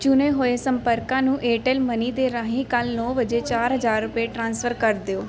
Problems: background sounds at intervals